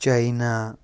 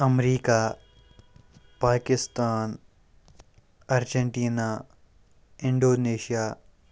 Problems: background sounds at intervals